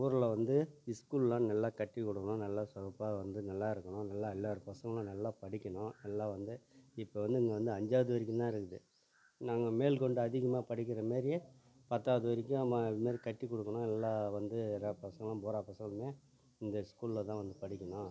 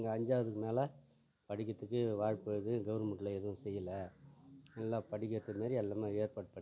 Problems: low volume